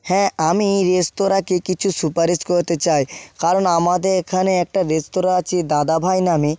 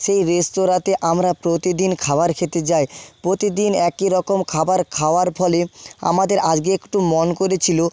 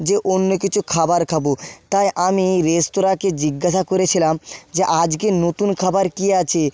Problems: none marked